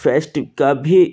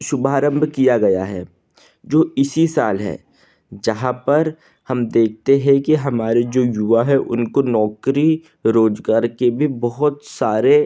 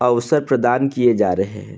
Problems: background sounds at intervals, background conversations at intervals